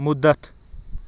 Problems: background sounds at intervals